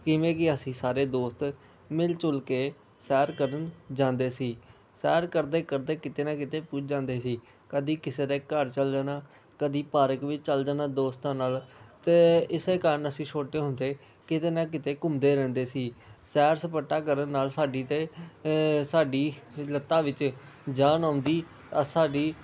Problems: background conversations at intervals